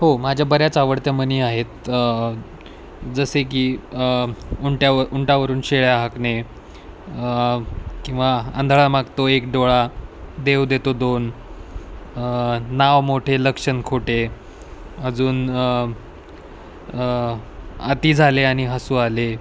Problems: none marked